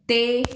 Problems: background sounds at intervals